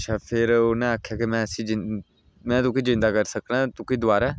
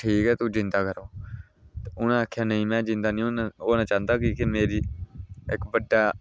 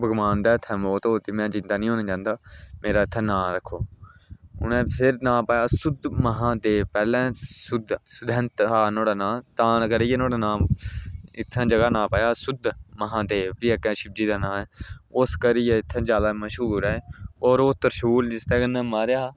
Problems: none marked